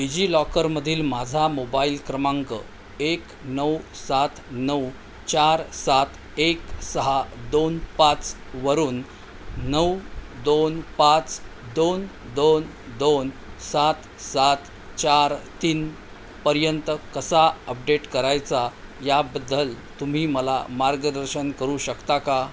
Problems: constant background noise